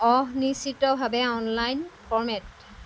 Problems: constant background noise